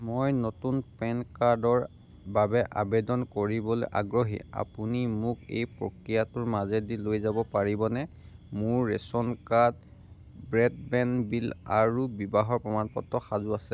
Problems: background sounds at intervals